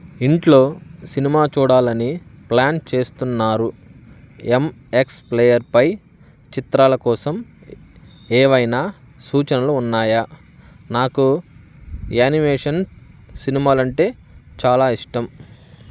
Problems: constant background noise